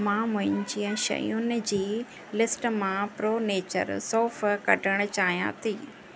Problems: constant background noise